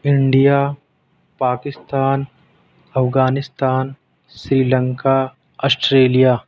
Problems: background sounds at intervals